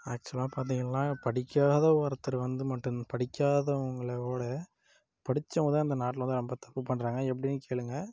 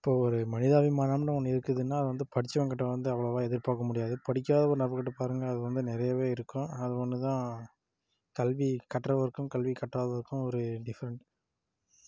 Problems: low volume